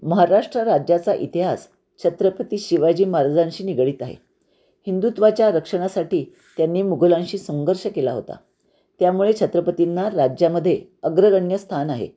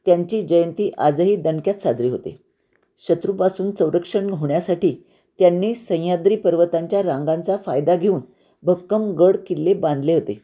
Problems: none marked